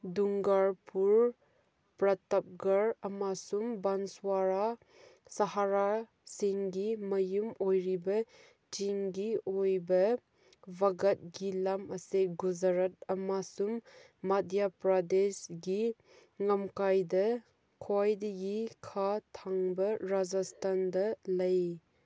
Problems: none marked